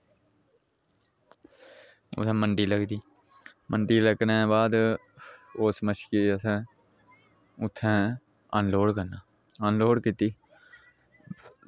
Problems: none marked